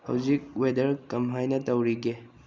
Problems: low volume